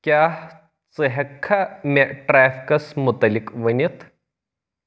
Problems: none marked